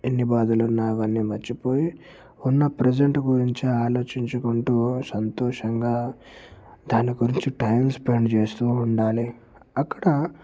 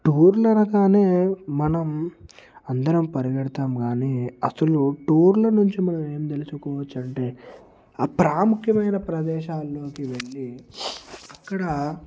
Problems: background sounds at intervals